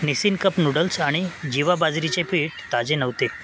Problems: none marked